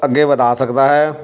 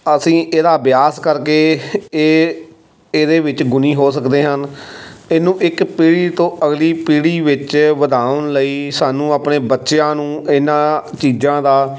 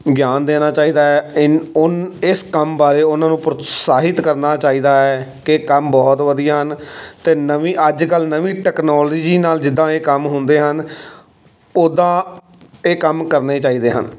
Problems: constant background noise